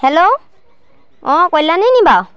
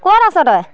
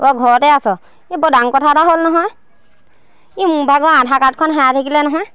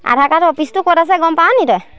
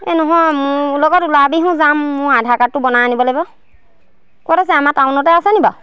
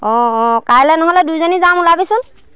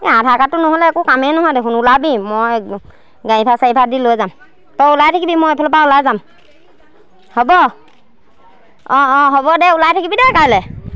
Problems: none marked